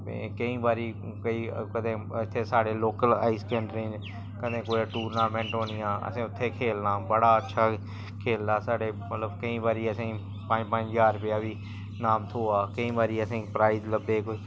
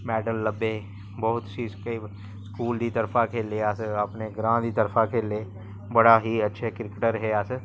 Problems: constant background noise